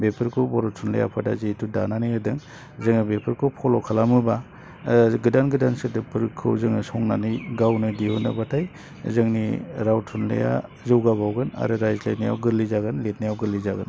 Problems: low volume